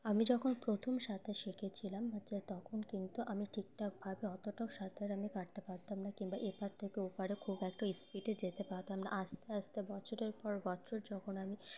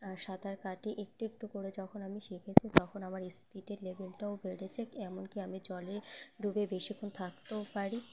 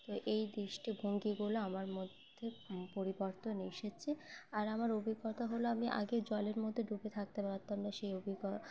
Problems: constant background noise, background conversations at intervals